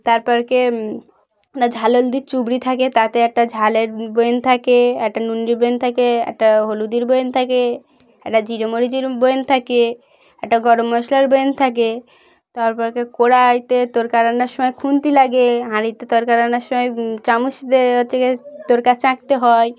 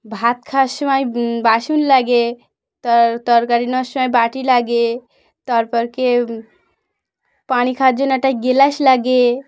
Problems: background sounds at intervals